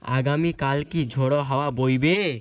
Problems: constant background noise